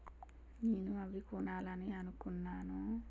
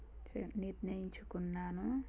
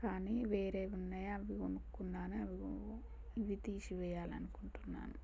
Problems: low volume